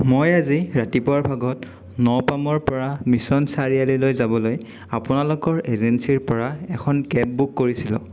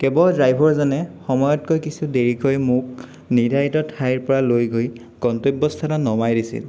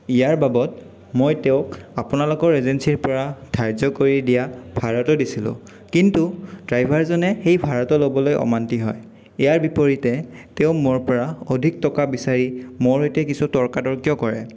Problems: none marked